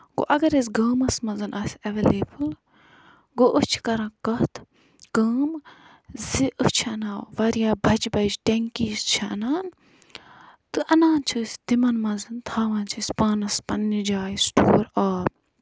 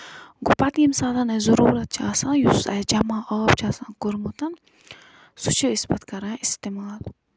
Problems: none marked